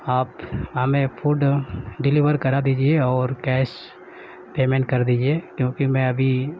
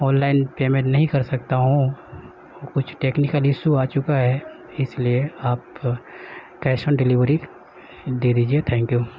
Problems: none marked